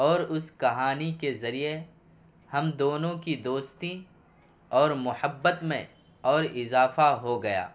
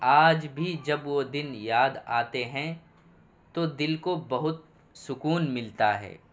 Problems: constant background noise